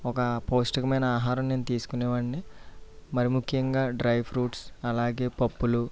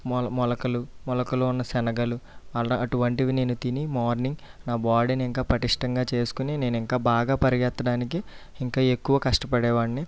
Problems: low volume